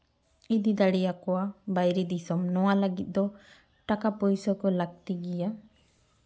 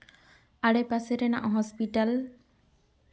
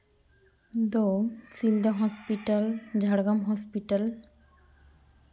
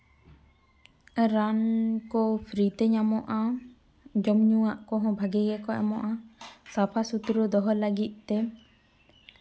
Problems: none marked